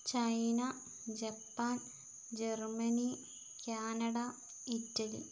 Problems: low volume